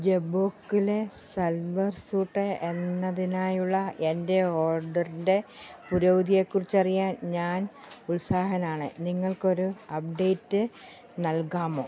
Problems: low volume